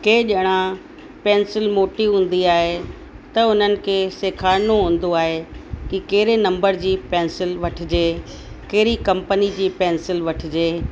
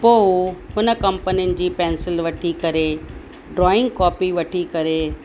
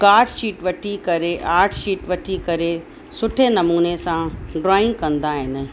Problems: constant background noise